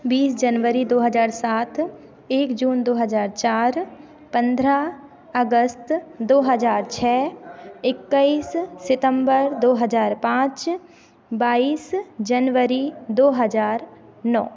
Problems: constant background noise, echo